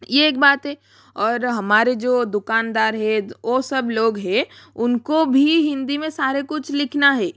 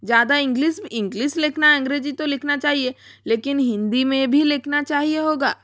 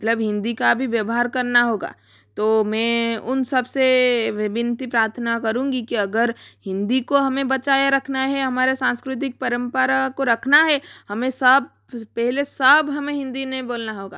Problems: background sounds at intervals